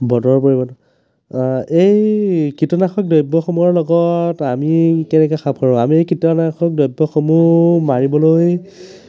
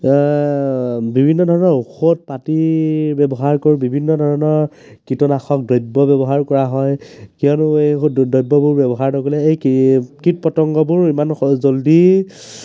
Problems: background conversations at intervals